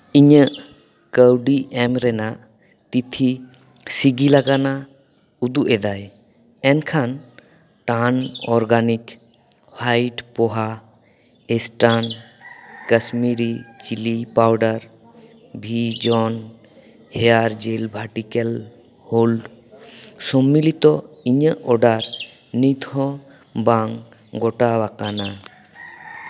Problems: background sounds at intervals